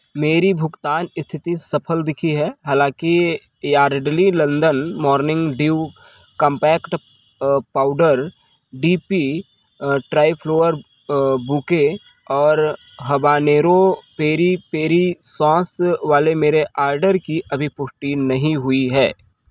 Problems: none marked